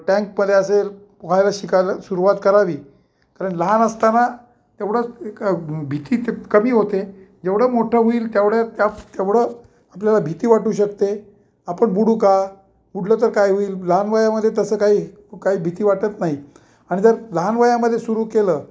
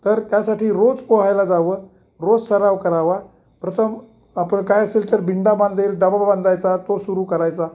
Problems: none marked